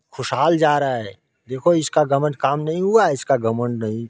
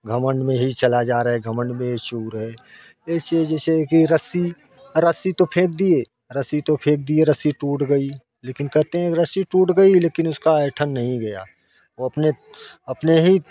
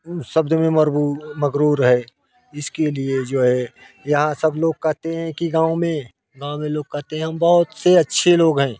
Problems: constant background noise